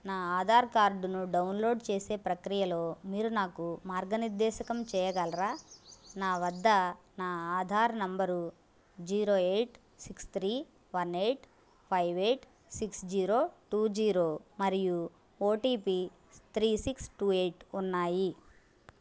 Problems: constant background noise